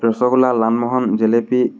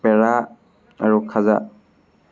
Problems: none marked